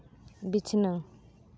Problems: none marked